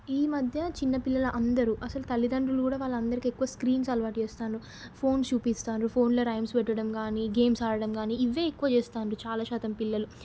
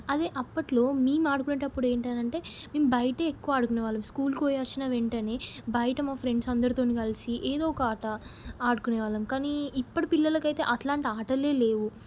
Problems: none marked